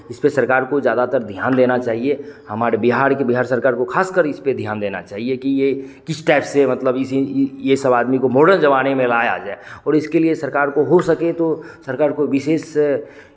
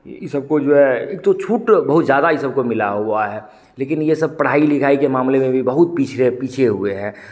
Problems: constant background noise, background conversations at intervals